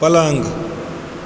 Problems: background sounds at intervals